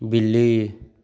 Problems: background sounds at intervals, echo